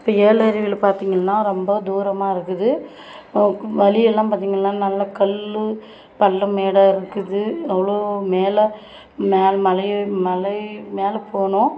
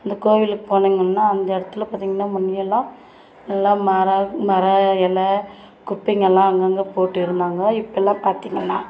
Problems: constant background noise, background conversations at intervals